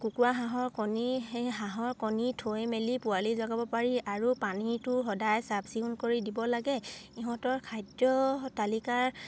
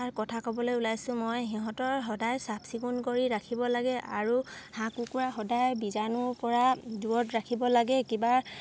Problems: none marked